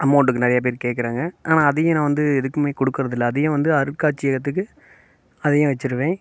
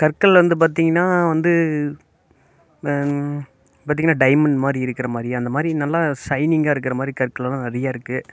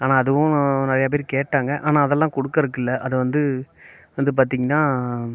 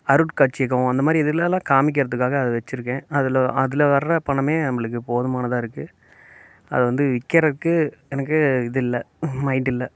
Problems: none marked